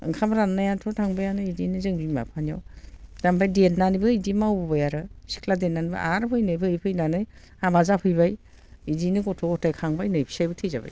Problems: constant background noise